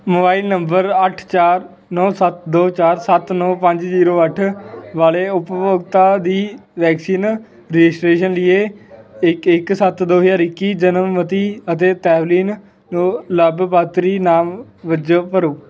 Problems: none marked